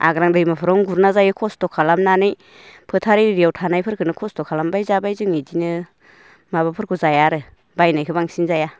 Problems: none marked